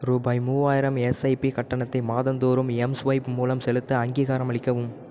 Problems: none marked